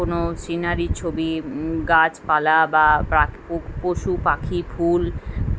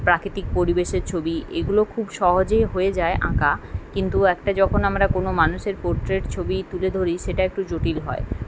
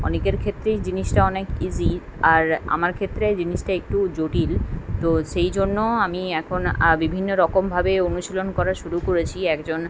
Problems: constant background noise